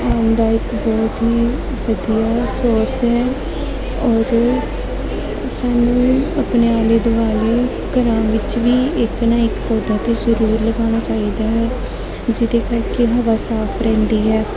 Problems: constant background noise, continuous background conversations